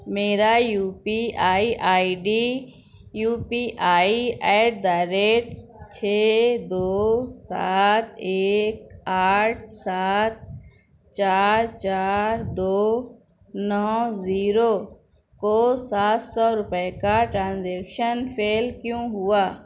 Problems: background sounds at intervals, background conversations at intervals